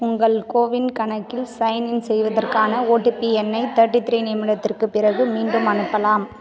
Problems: constant background noise